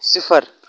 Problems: none marked